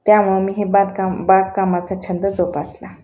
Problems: none marked